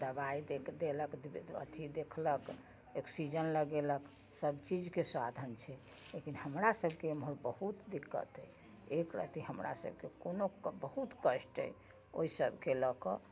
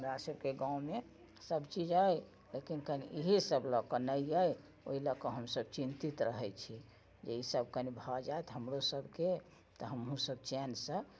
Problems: none marked